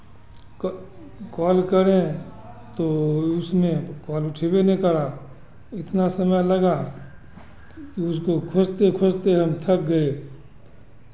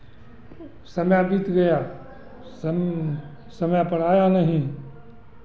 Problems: constant background noise